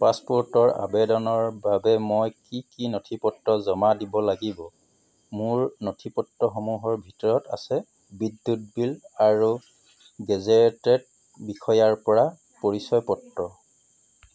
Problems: background sounds at intervals